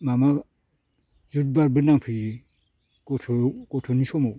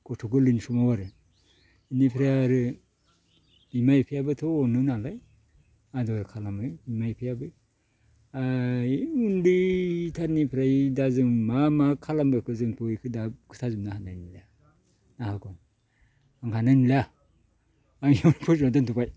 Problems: low volume